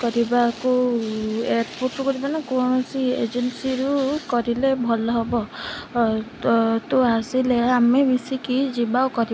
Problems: constant background noise